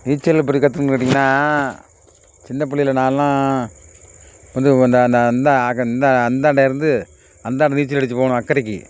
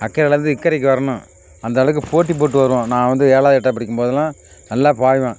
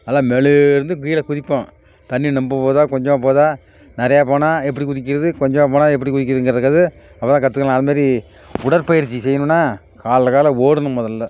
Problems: background sounds at intervals